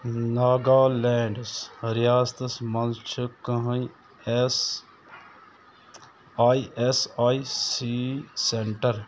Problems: constant background noise